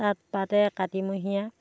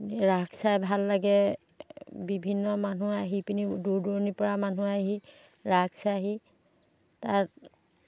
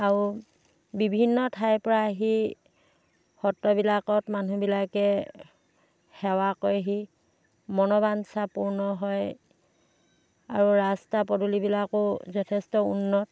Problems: background sounds at intervals